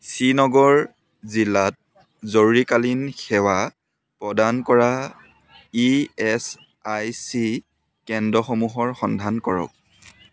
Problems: constant background noise